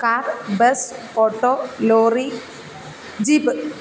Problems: constant background noise, low volume